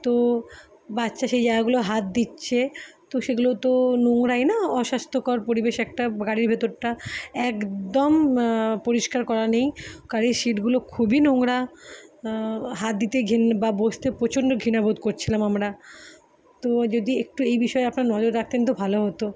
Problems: background sounds at intervals